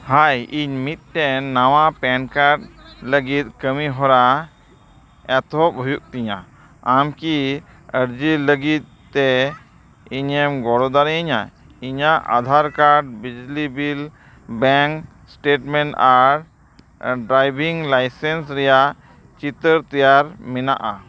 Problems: constant background noise